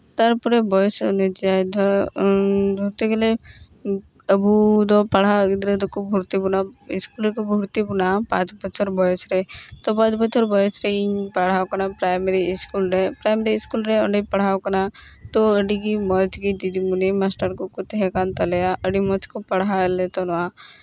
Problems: none marked